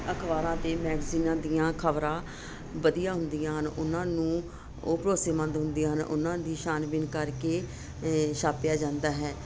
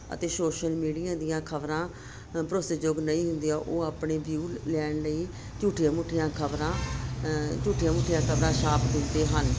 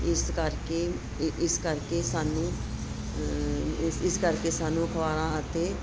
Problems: constant background noise